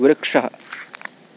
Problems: none marked